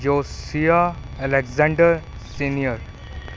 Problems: constant background noise